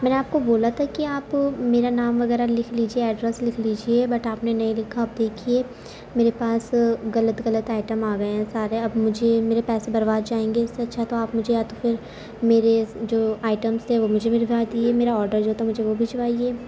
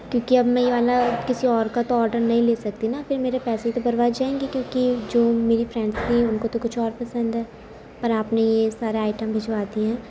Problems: constant background noise, low volume